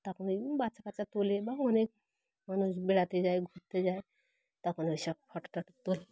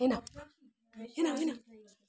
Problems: background sounds at intervals, continuous background conversations